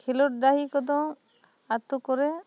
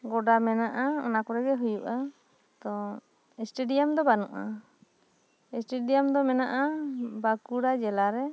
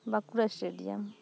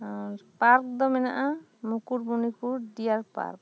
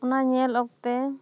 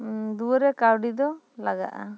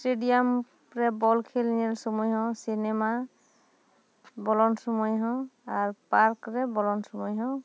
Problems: none marked